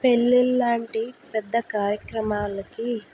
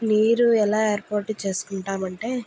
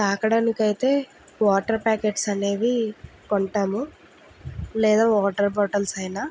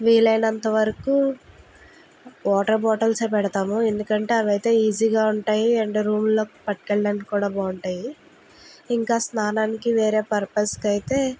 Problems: none marked